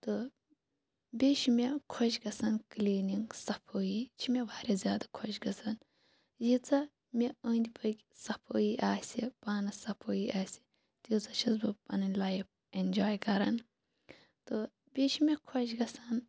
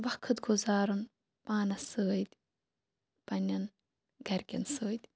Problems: none marked